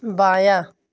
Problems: background sounds at intervals